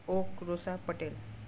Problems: background sounds at intervals